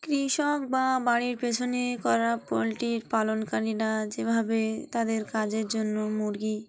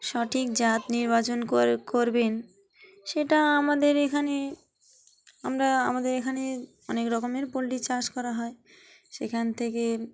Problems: background sounds at intervals